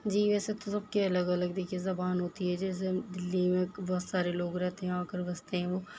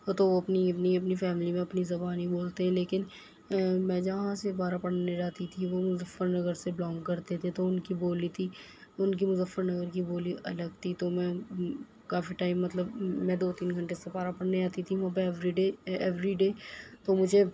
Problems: constant background noise